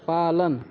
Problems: none marked